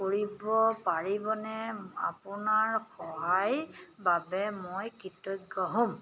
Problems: none marked